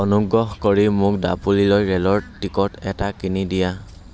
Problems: constant background noise